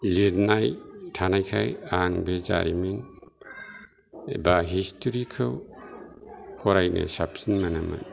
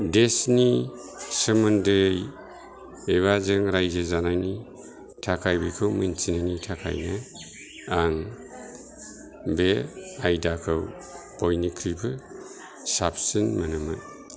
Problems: constant background noise, continuous background conversations